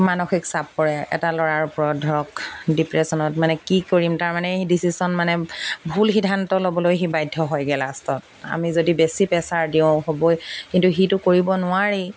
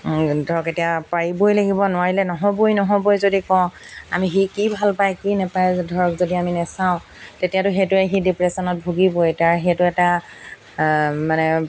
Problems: background sounds at intervals